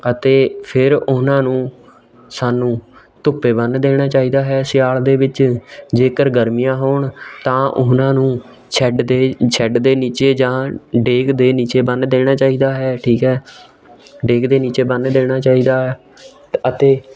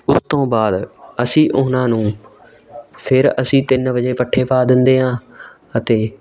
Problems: continuous background conversations